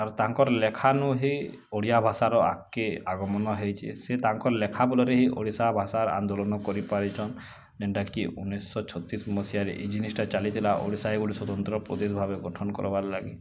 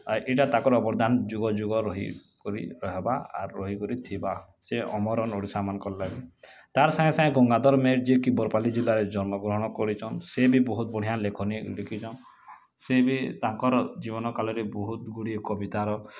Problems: constant background noise